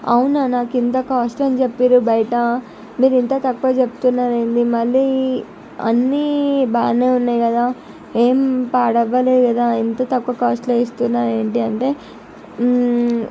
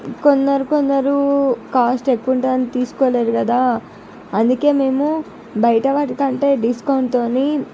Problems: none marked